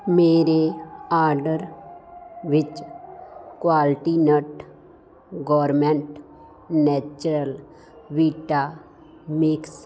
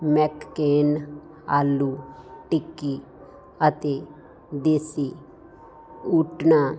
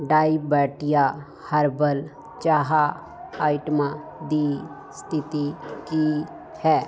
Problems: constant background noise